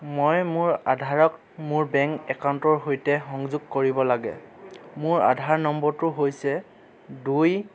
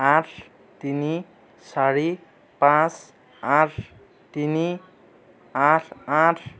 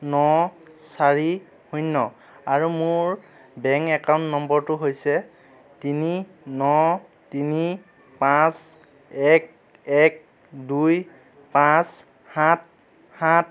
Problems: none marked